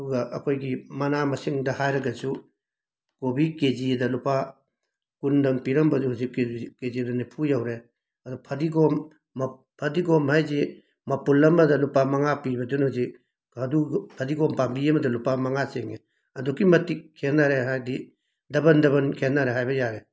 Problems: background sounds at intervals